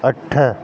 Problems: constant background noise